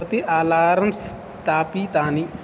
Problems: constant background noise